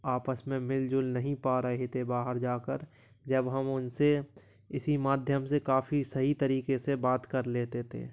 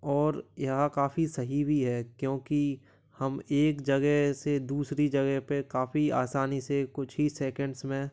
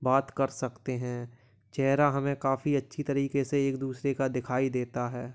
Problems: background sounds at intervals